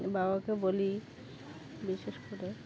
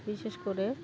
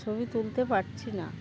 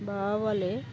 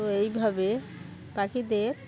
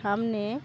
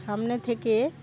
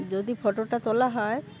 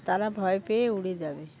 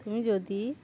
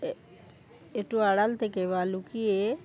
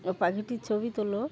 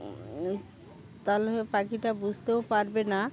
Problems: constant background noise, continuous background conversations